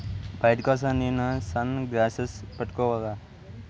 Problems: background sounds at intervals